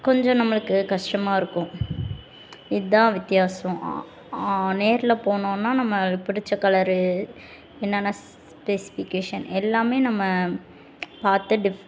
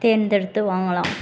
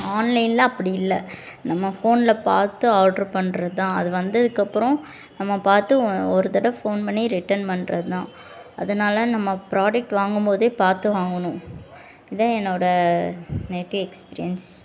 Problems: constant background noise, background conversations at intervals